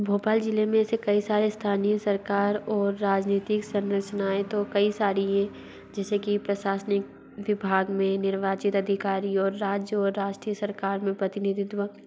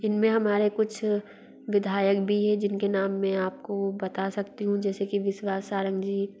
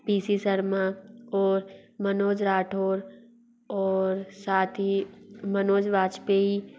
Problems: constant background noise